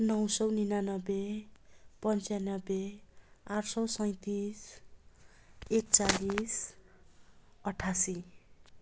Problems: constant background noise